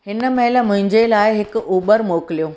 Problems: none marked